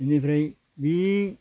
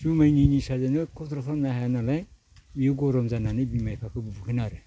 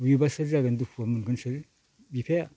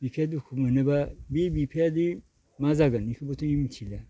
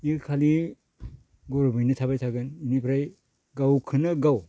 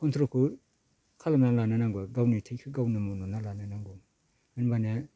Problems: low volume